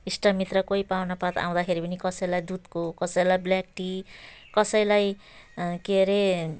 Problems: background sounds at intervals, background conversations at intervals